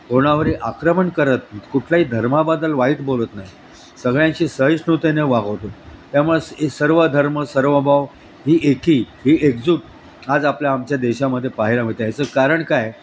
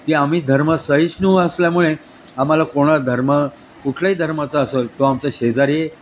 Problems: constant background noise